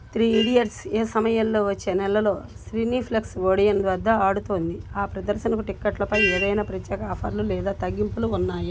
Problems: background sounds at intervals